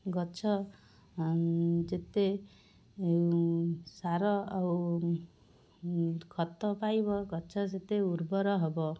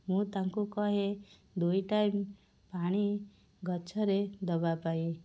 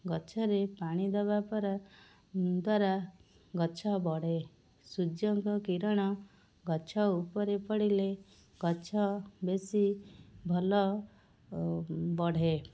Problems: none marked